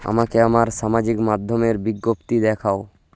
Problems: constant background noise